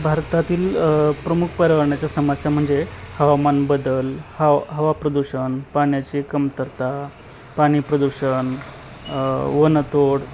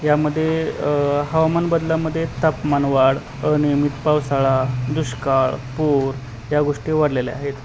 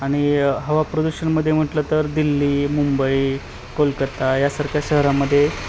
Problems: constant background noise, continuous background conversations